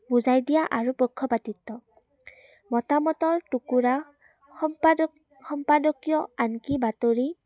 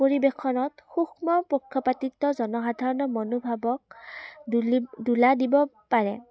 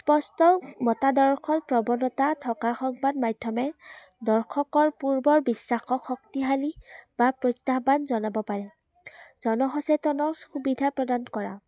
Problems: none marked